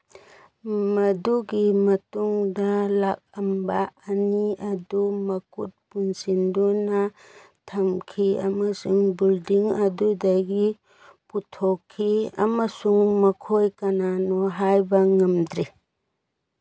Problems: background sounds at intervals